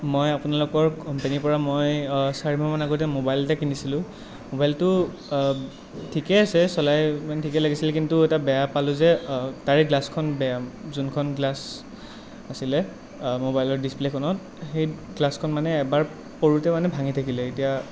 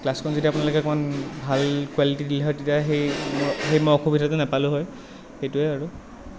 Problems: none marked